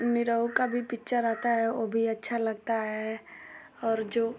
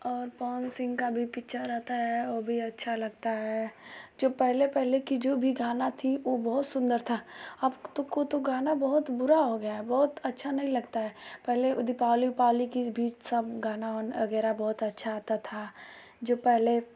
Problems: constant background noise